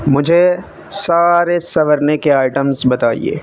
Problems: constant background noise